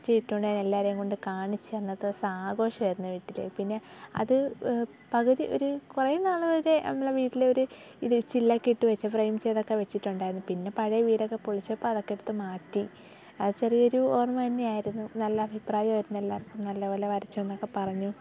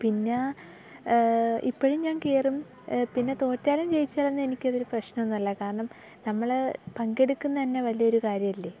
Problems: background sounds at intervals, low volume